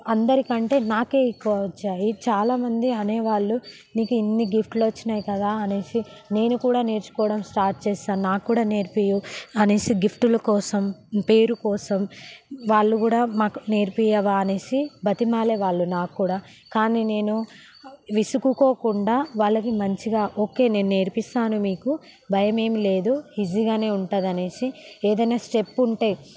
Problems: background sounds at intervals